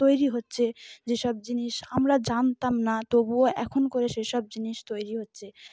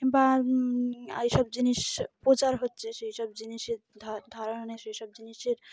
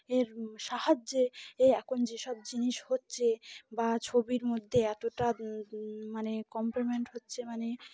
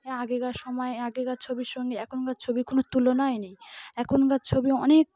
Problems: constant background noise